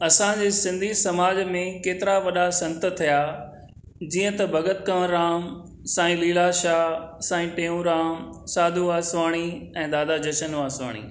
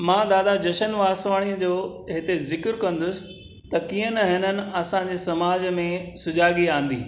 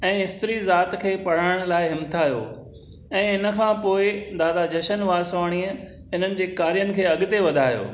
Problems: none marked